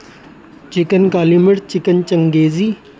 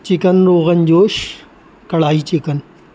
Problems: constant background noise